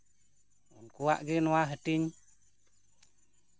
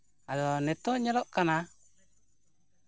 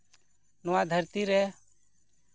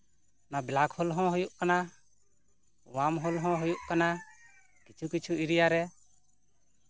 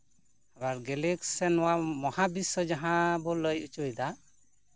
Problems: constant background noise, background conversations at intervals